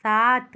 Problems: none marked